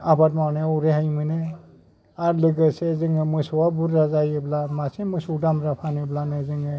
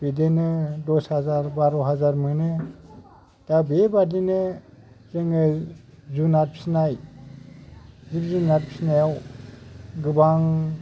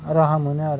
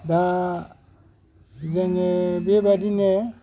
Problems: background sounds at intervals